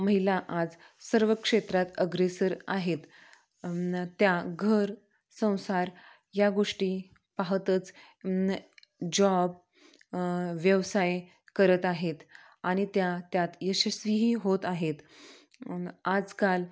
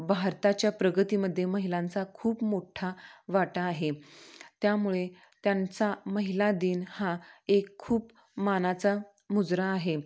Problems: none marked